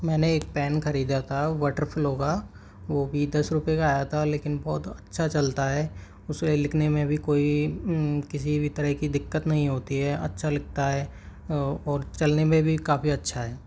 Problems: background sounds at intervals